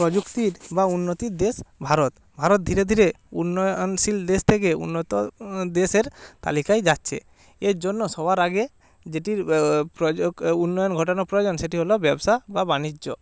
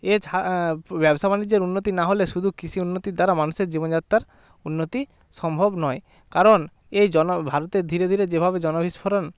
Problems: constant background noise